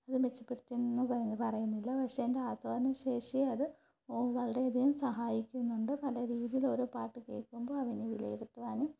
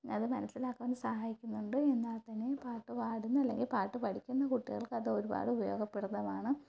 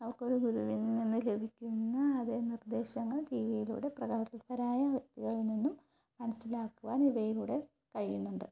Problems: low volume